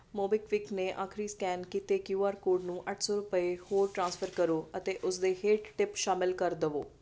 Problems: none marked